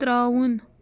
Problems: constant background noise